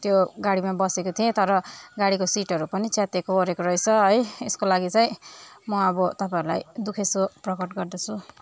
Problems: constant background noise